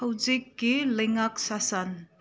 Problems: none marked